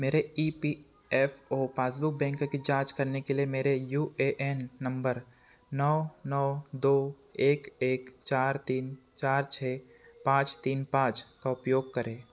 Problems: none marked